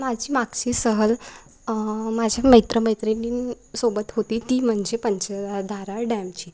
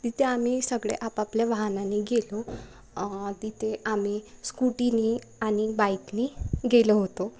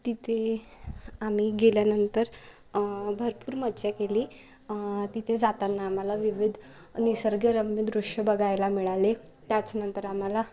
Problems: none marked